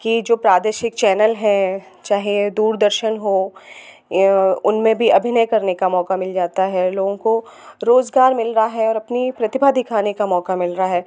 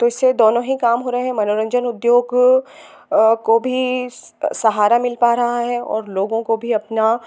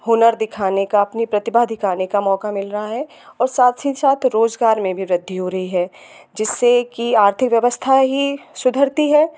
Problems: none marked